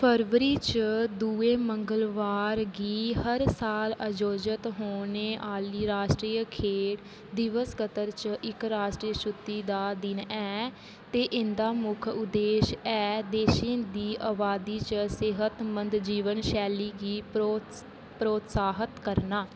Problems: constant background noise